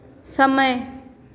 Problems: constant background noise, echo